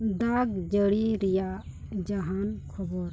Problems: constant background noise